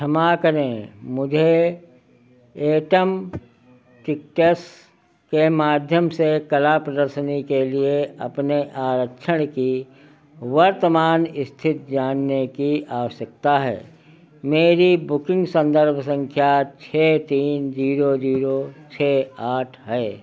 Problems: none marked